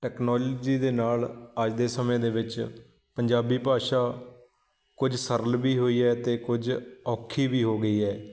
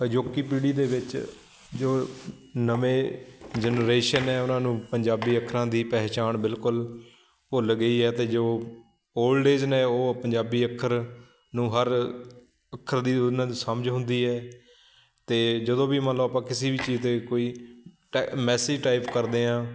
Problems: constant background noise